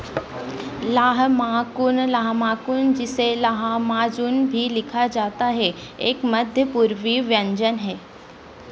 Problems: none marked